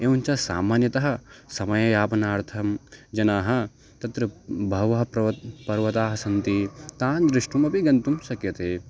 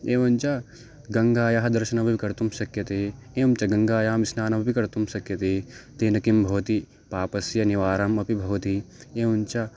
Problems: background sounds at intervals